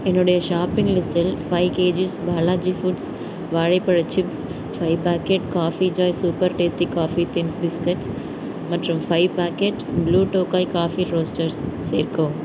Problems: background sounds at intervals